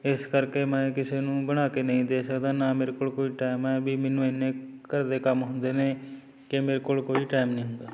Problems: background sounds at intervals, background conversations at intervals